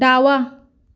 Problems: none marked